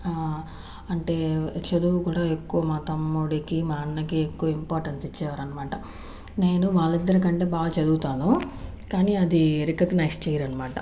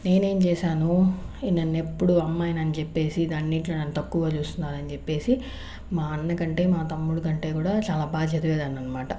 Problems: constant background noise